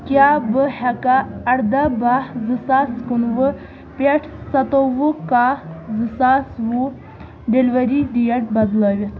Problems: none marked